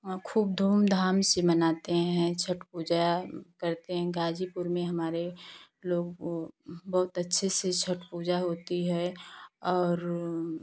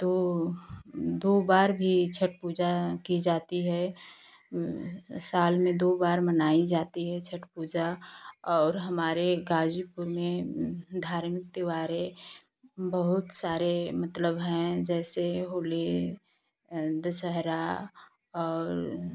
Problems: constant background noise